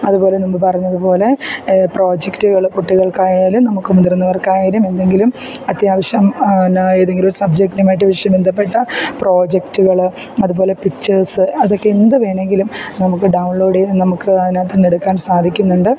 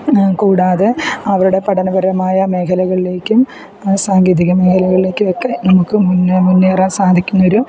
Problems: background sounds at intervals